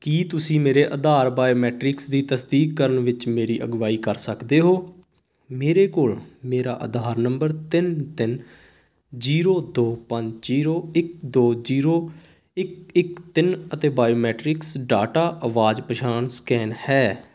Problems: constant background noise